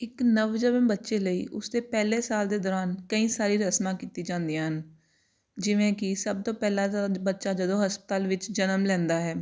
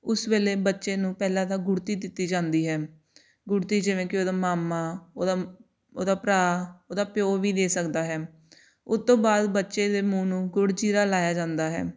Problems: none marked